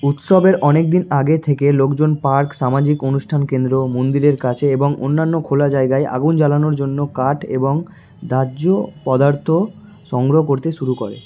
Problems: background sounds at intervals